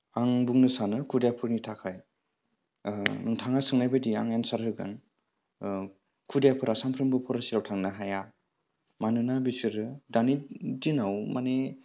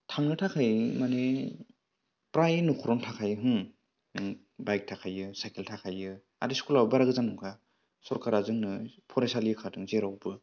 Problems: low volume